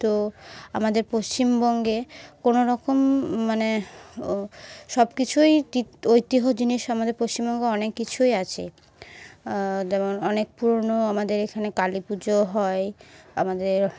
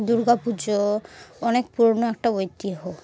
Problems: background sounds at intervals